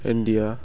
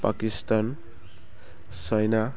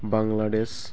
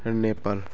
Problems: constant background noise